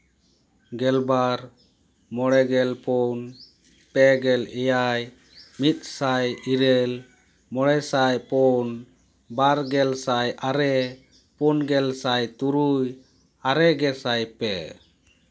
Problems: background sounds at intervals